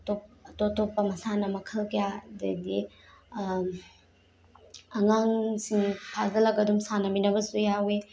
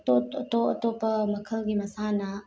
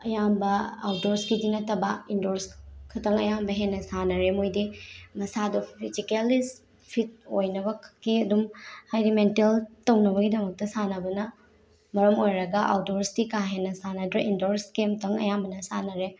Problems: none marked